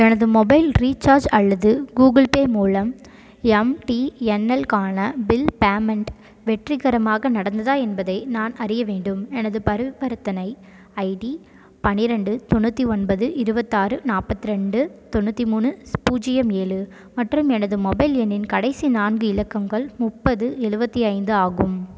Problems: constant background noise